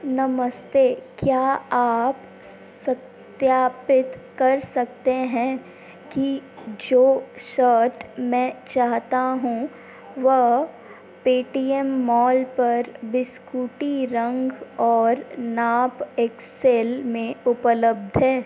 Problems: constant background noise